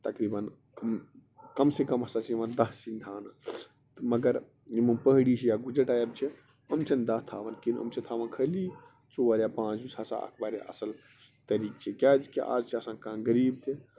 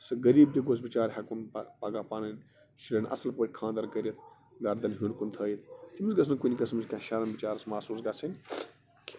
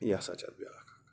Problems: constant background noise